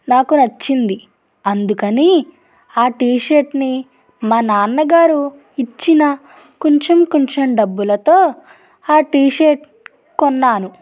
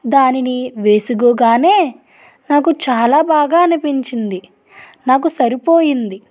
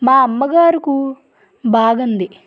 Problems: none marked